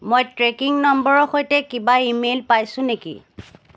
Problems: background sounds at intervals